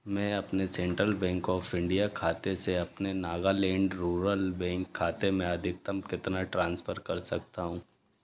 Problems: constant background noise